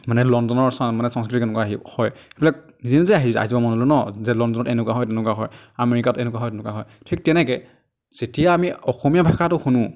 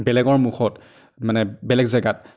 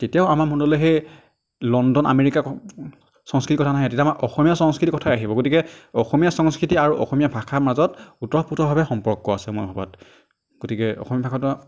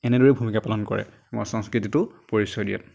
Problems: none marked